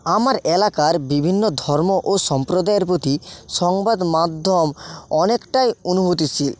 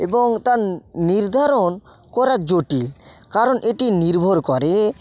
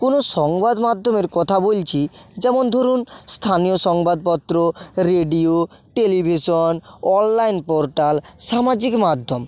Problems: constant background noise, background conversations at intervals